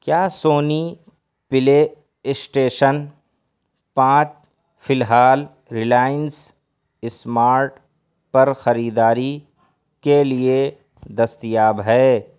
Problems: none marked